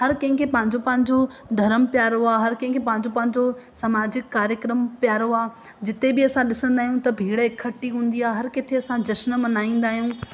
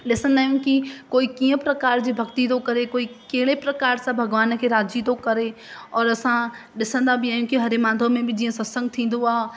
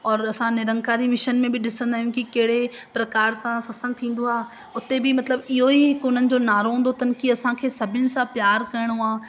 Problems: constant background noise, echo